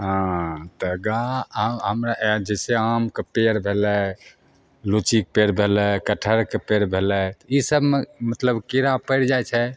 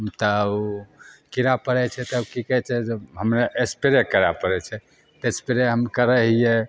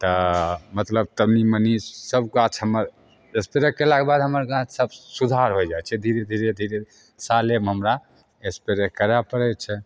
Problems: none marked